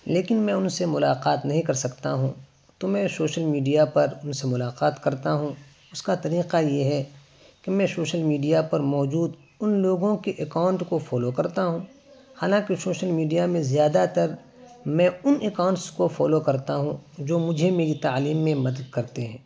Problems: constant background noise